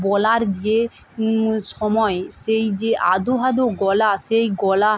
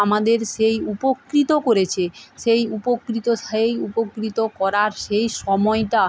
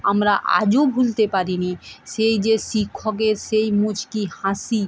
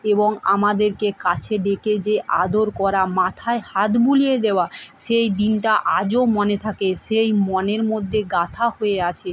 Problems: background sounds at intervals, background conversations at intervals